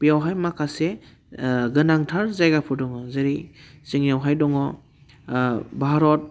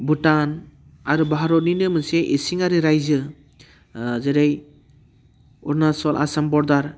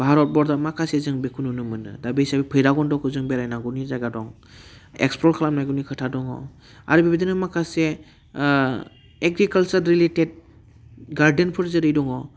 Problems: constant background noise